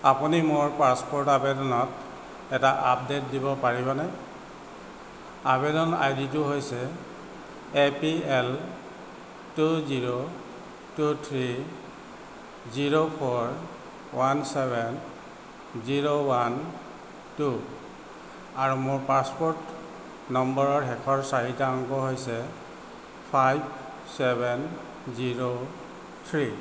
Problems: constant background noise